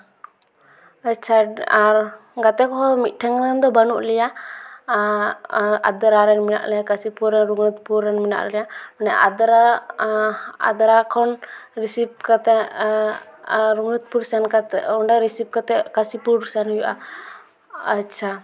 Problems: none marked